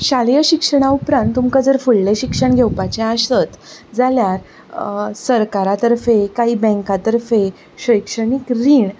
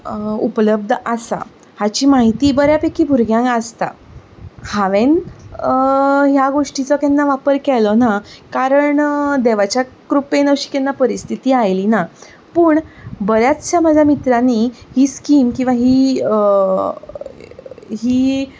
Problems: none marked